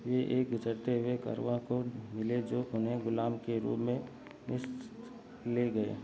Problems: constant background noise